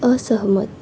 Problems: constant background noise